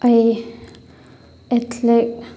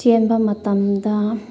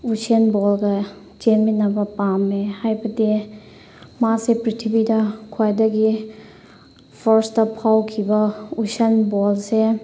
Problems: constant background noise